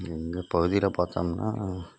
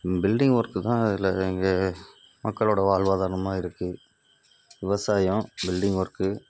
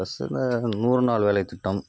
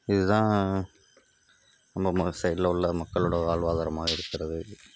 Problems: none marked